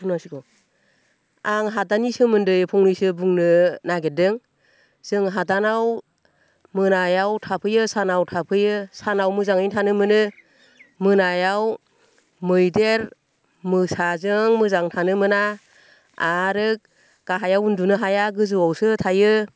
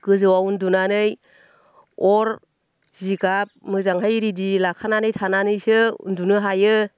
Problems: none marked